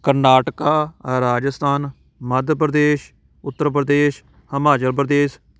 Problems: constant background noise